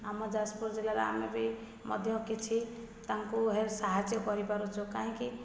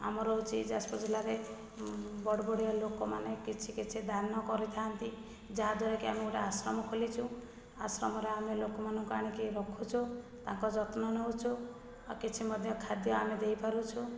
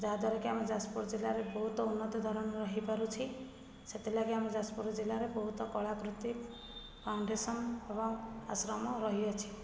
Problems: low volume